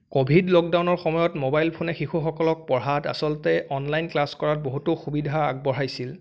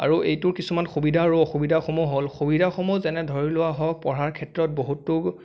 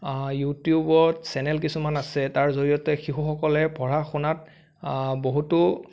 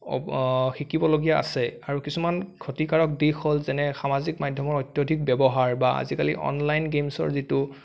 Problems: none marked